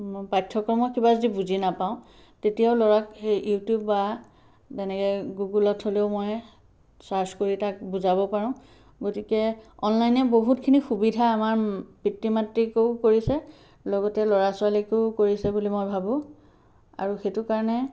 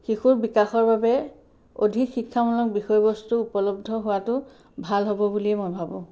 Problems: background sounds at intervals